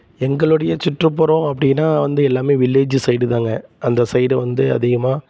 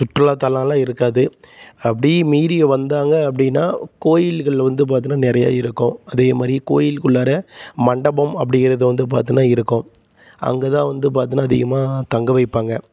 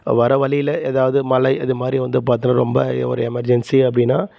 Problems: none marked